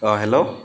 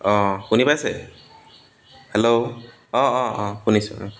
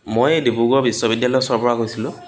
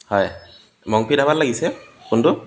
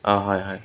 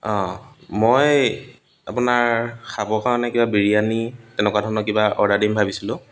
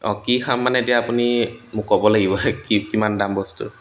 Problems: constant background noise, background conversations at intervals